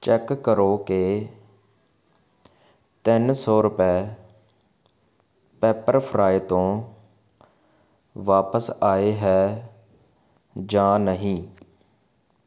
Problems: constant background noise